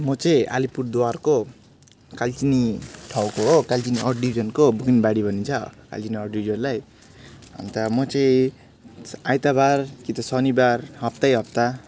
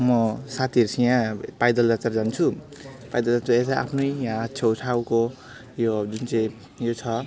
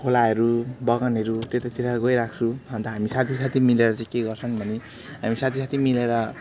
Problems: constant background noise, continuous background conversations